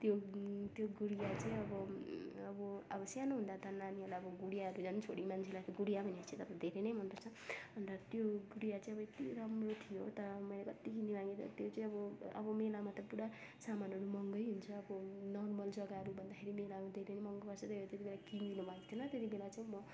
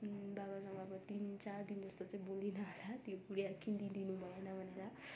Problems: none marked